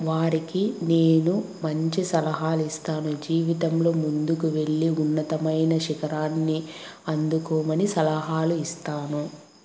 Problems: constant background noise